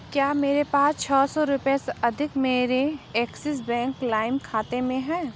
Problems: background sounds at intervals